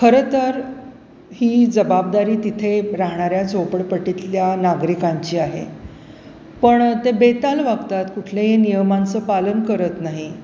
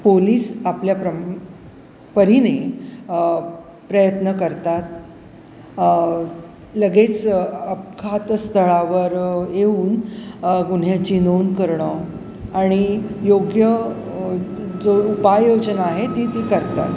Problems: constant background noise, background conversations at intervals, echo